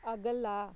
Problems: background sounds at intervals